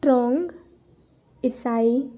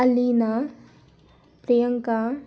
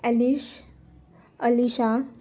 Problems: constant background noise, continuous background conversations